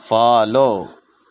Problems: none marked